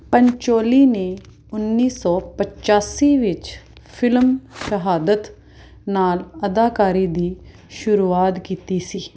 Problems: background sounds at intervals